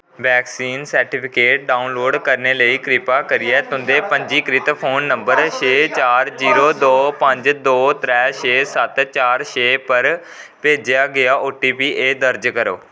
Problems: constant background noise